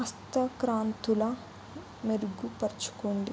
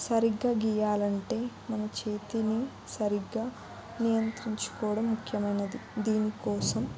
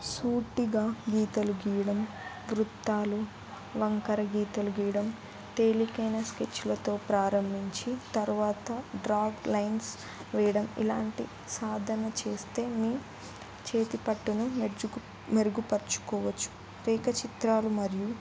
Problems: background conversations at intervals